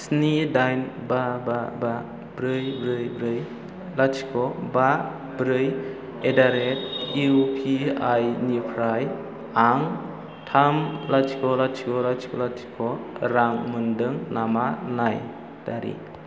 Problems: low volume